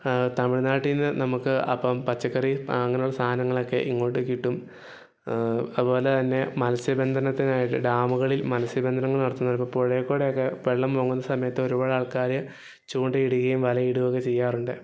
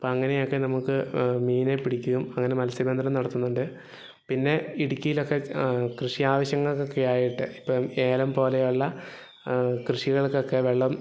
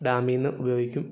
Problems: background sounds at intervals